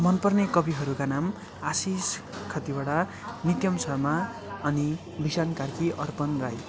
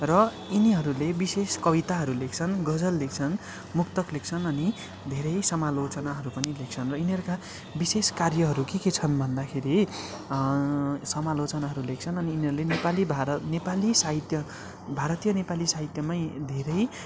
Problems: constant background noise